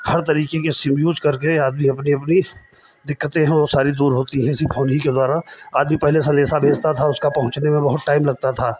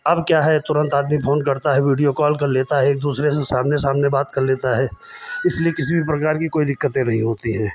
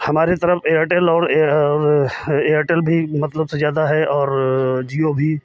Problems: none marked